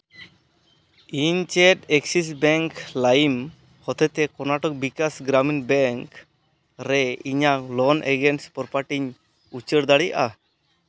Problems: none marked